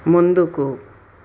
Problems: constant background noise